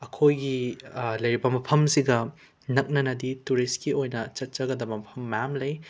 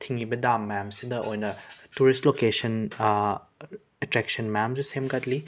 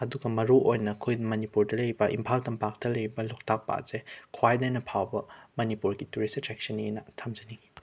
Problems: background sounds at intervals